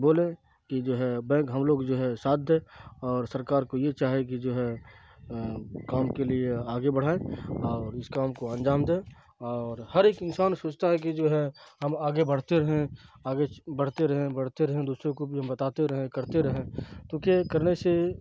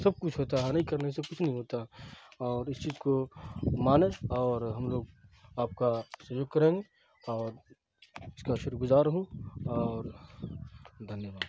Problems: constant background noise